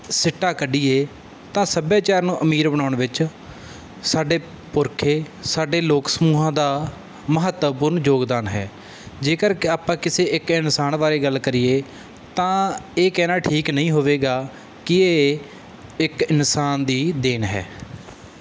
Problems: none marked